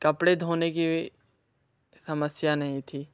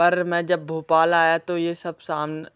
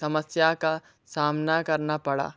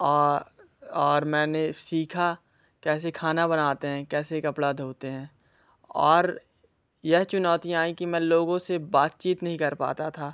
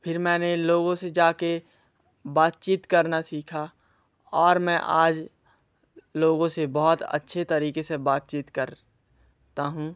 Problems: background sounds at intervals